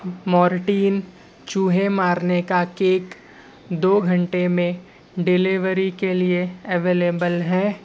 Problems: constant background noise, low volume